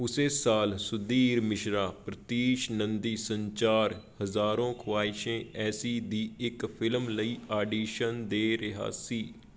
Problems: background sounds at intervals